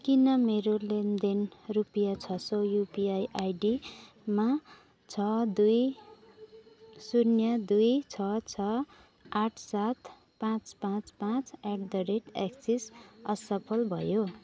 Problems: none marked